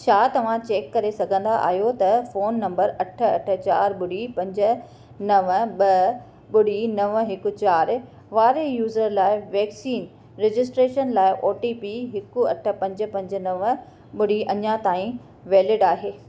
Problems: none marked